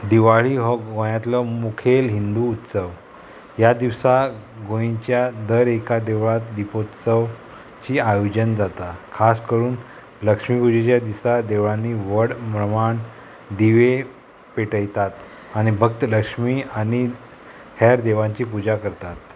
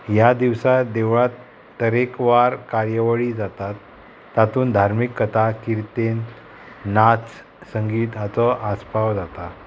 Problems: constant background noise